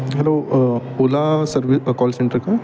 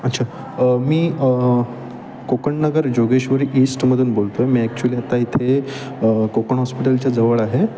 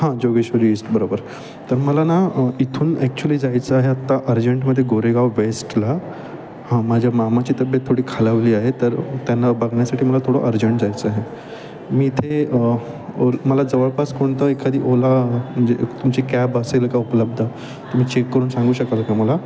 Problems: constant background noise, continuous background conversations